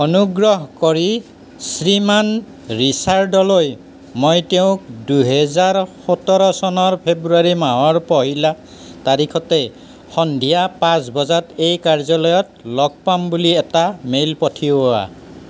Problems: constant background noise